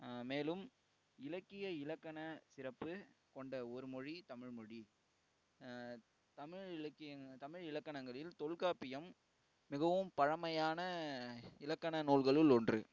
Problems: low volume